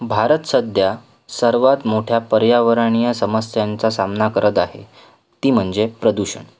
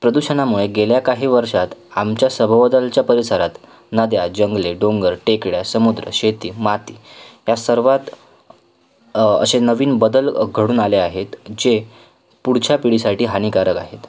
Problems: constant background noise, background conversations at intervals